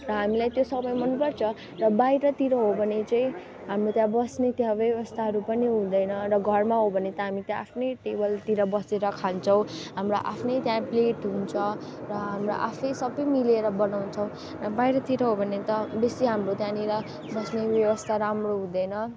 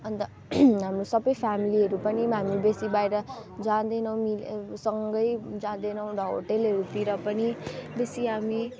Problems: background sounds at intervals